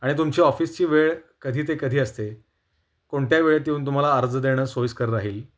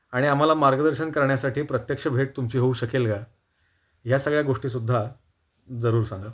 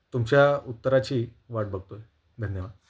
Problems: constant background noise, background conversations at intervals